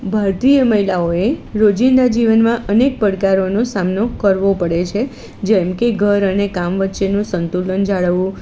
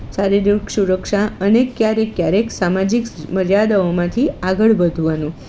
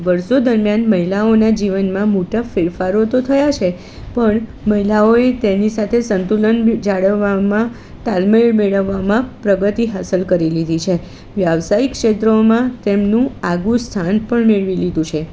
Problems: constant background noise